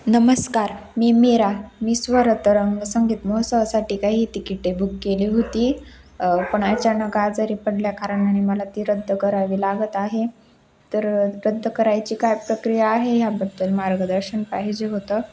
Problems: constant background noise, background conversations at intervals